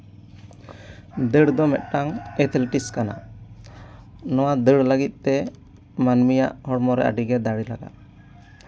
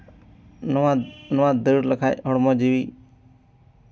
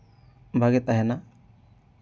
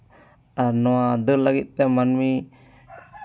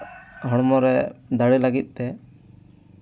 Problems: background sounds at intervals, background conversations at intervals